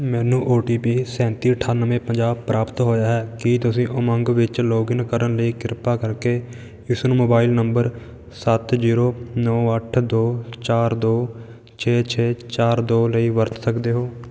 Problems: none marked